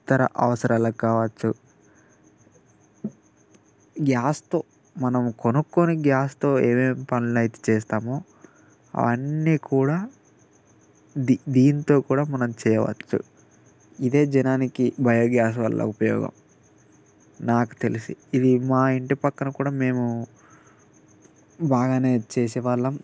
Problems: constant background noise